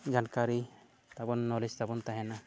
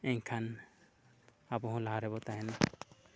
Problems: low volume